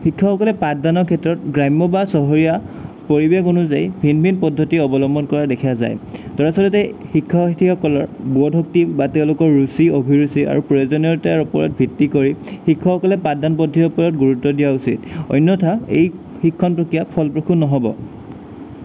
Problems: none marked